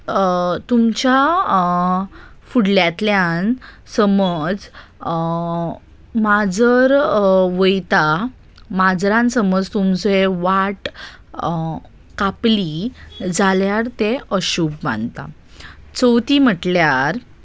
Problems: none marked